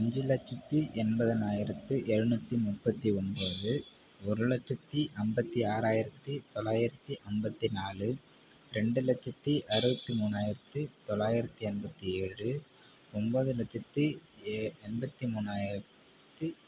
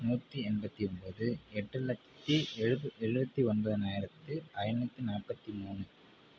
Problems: background sounds at intervals